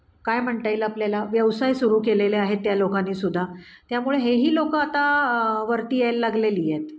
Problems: none marked